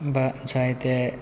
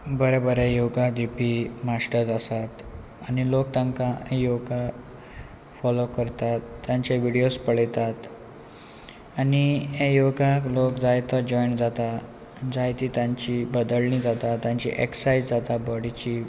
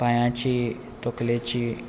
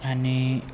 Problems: constant background noise